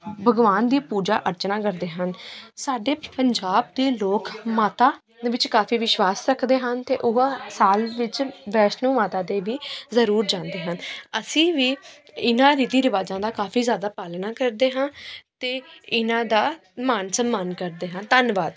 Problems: continuous background conversations